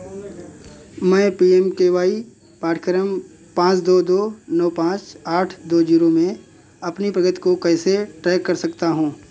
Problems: none marked